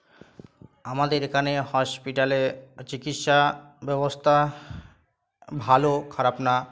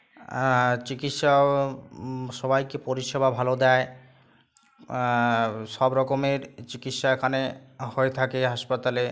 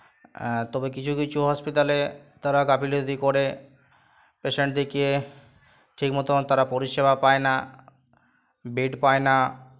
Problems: constant background noise